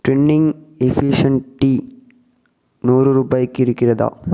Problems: echo